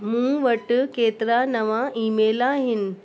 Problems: constant background noise, echo